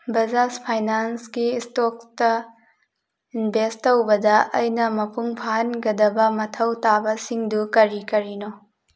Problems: none marked